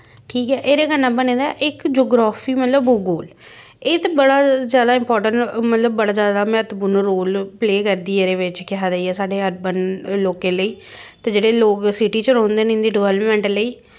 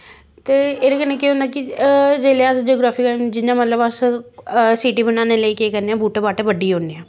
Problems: constant background noise